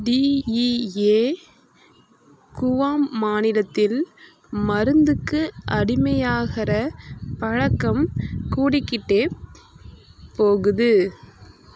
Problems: constant background noise